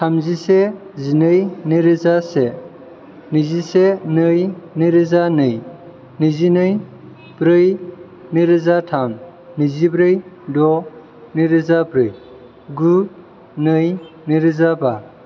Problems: none marked